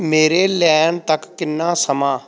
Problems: background conversations at intervals